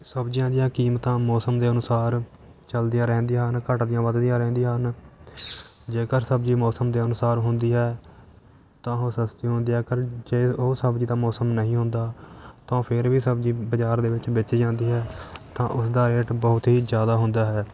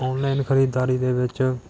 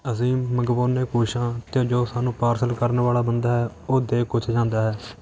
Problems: constant background noise